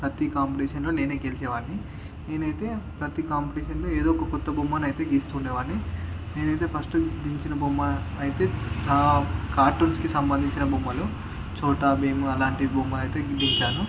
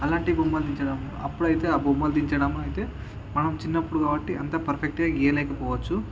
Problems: constant background noise, background conversations at intervals